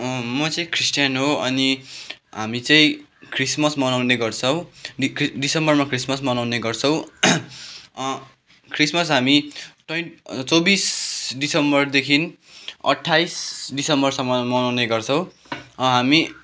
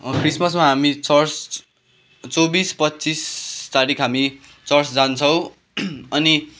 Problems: background sounds at intervals